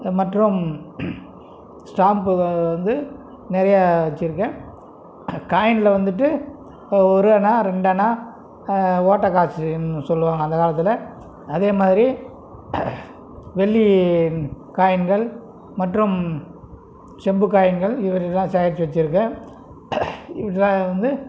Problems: background conversations at intervals